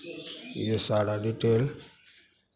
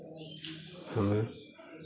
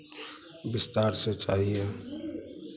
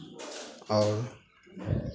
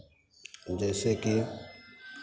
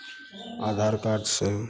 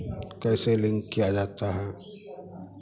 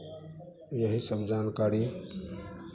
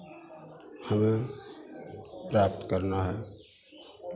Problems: constant background noise